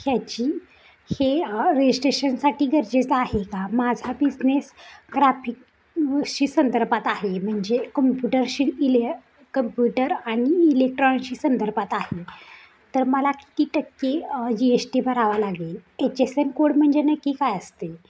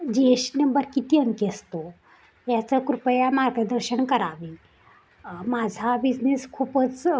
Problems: background sounds at intervals